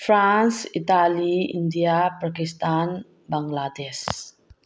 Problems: low volume